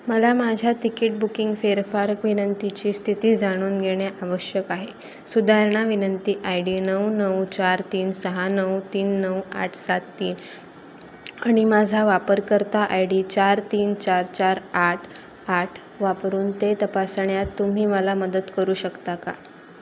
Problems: constant background noise, background conversations at intervals